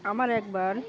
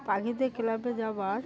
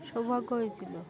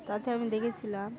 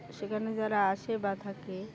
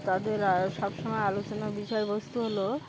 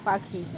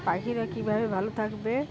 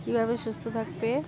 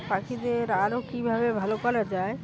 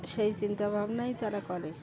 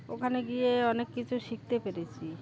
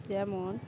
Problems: constant background noise, continuous background conversations